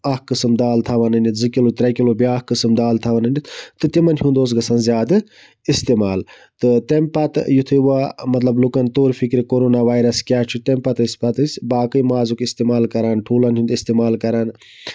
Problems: background sounds at intervals